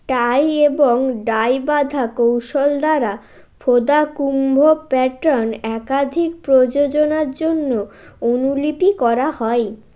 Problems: none marked